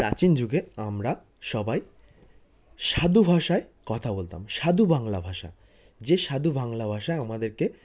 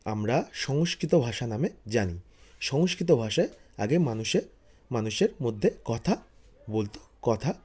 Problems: constant background noise, background conversations at intervals